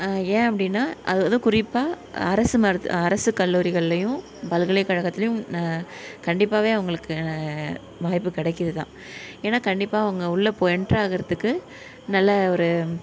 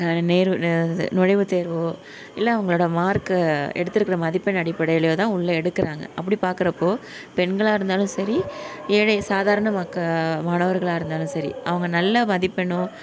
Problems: background sounds at intervals